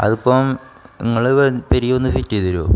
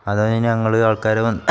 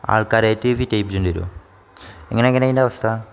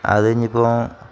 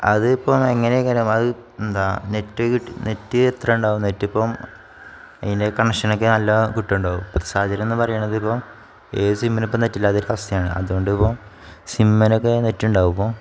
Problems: none marked